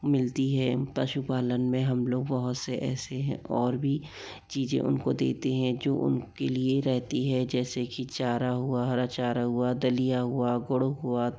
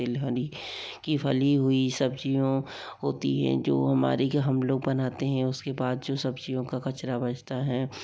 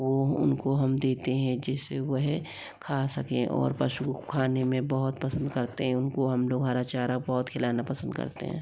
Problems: low volume